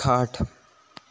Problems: none marked